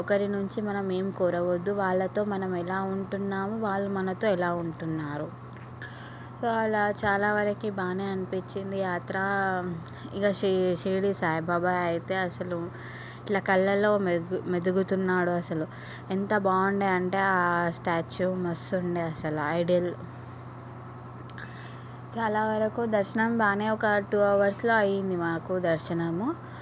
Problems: background sounds at intervals